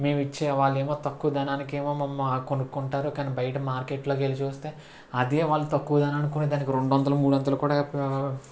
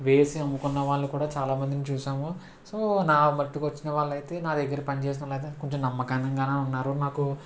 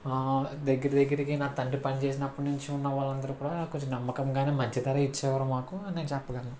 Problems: constant background noise